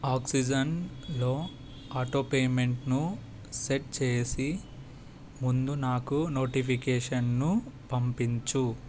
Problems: constant background noise